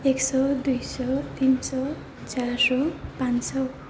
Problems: low volume